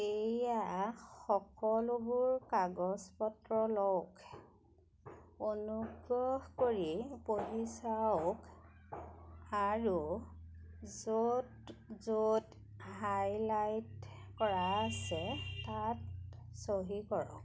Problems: none marked